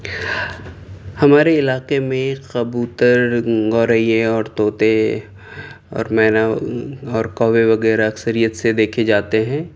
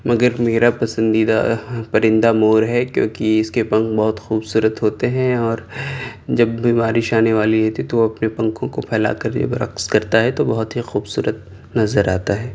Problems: none marked